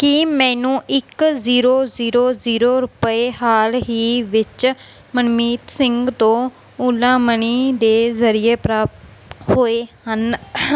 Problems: none marked